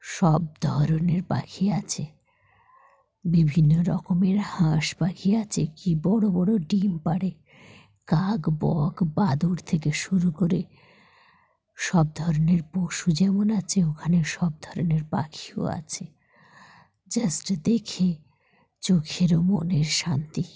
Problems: background sounds at intervals